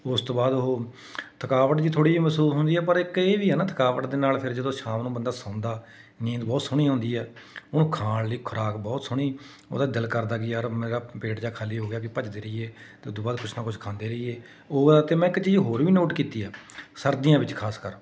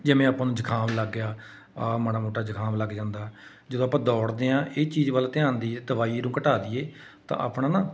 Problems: none marked